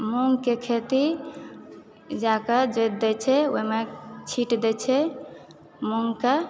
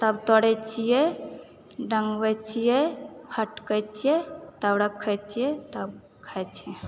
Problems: background conversations at intervals